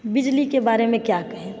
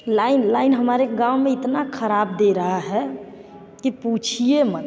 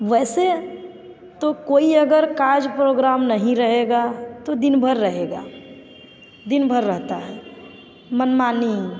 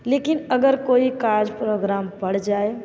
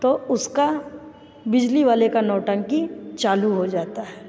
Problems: echo